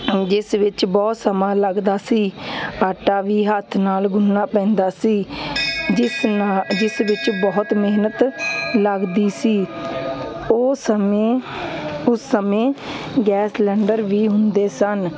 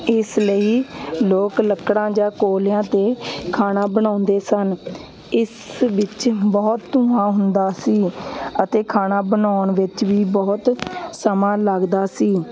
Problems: constant background noise